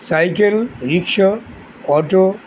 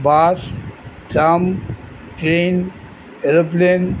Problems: none marked